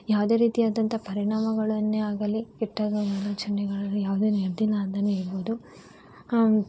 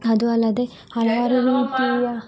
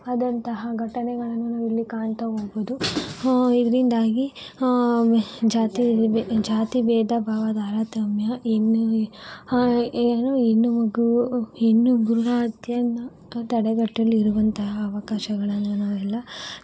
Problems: background sounds at intervals